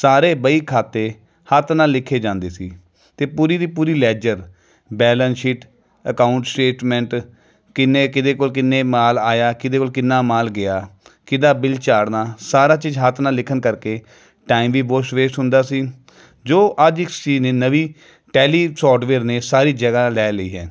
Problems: none marked